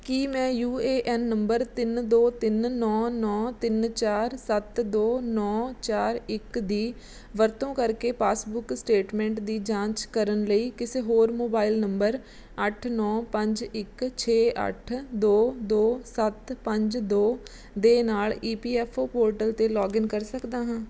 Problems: none marked